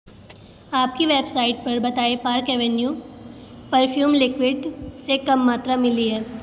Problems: background sounds at intervals